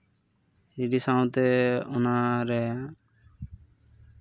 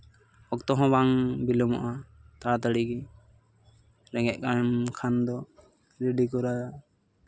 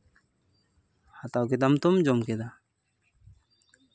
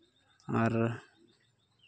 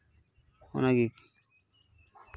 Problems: background sounds at intervals